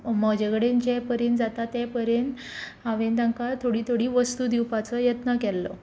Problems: constant background noise